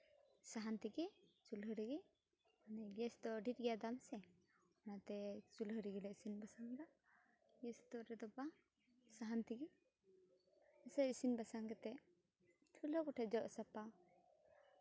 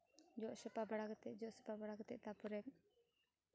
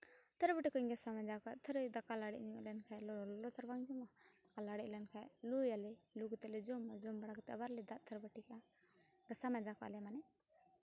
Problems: low volume